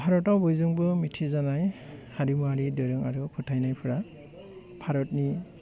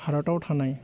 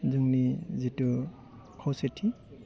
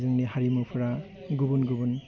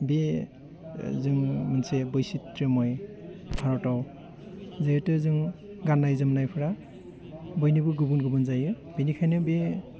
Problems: low volume